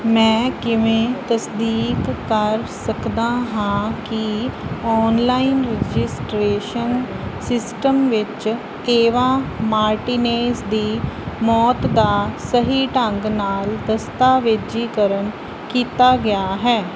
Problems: none marked